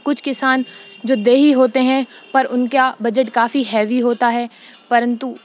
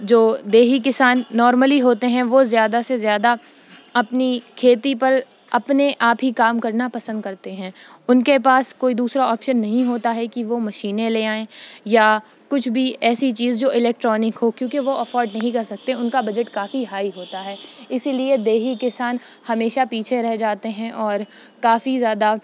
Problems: constant background noise